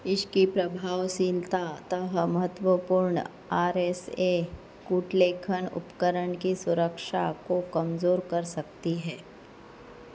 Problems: low volume